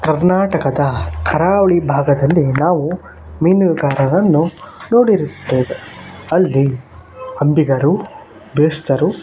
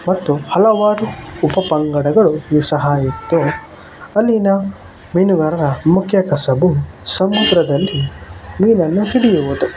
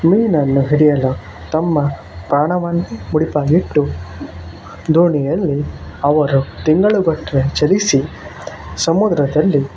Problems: constant background noise